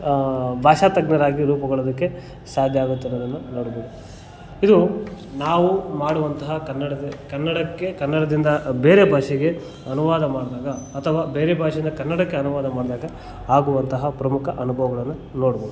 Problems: background conversations at intervals